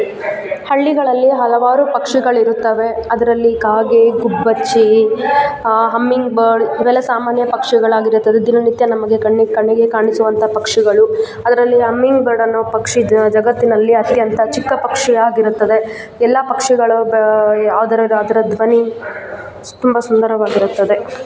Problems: constant background noise